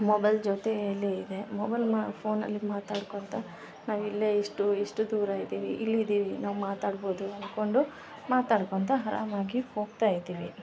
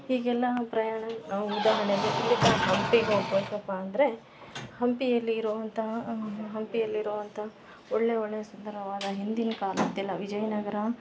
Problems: background sounds at intervals